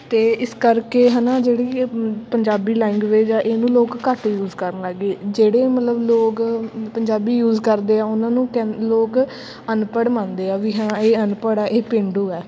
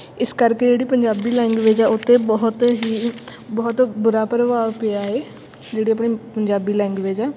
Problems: constant background noise